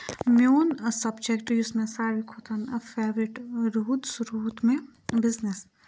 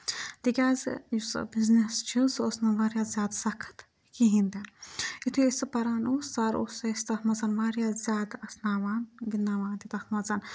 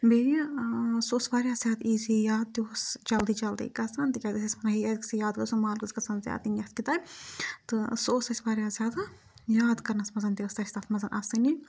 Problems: background sounds at intervals, background conversations at intervals